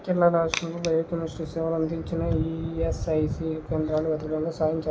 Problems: low volume